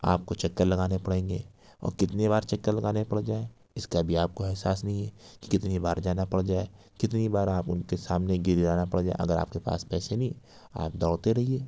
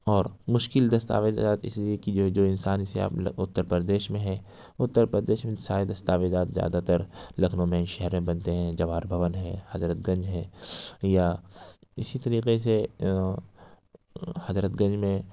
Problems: none marked